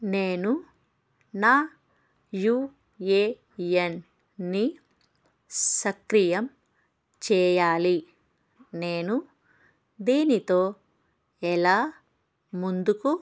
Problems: background sounds at intervals